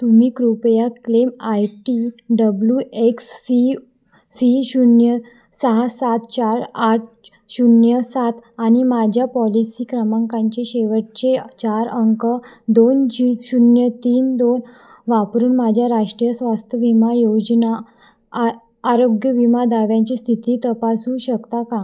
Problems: background sounds at intervals, echo